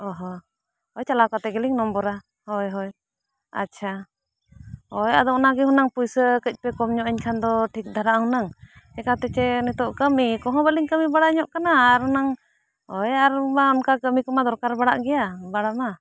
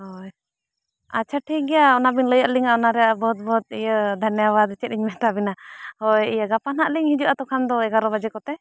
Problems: none marked